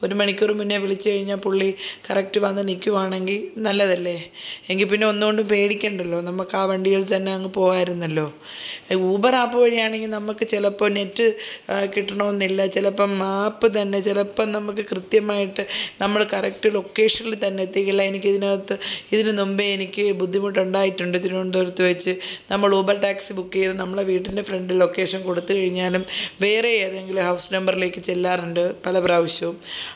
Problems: none marked